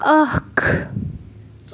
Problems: constant background noise